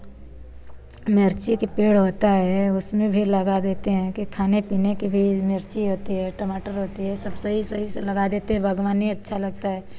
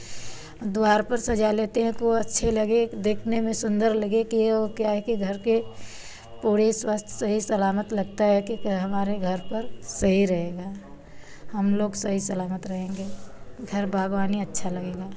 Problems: constant background noise